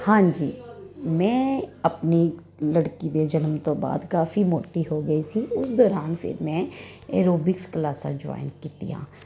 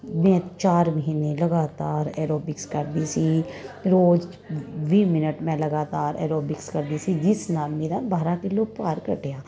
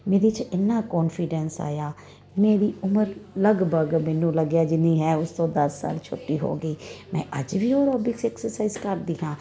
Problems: constant background noise